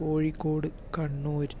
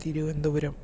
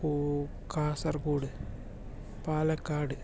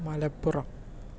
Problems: low volume